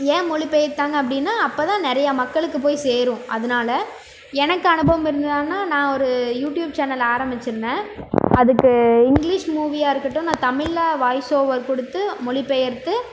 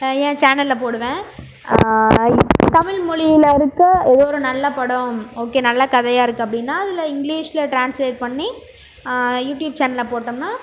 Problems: background sounds at intervals